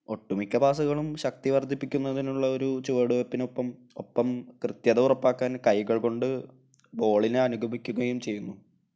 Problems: none marked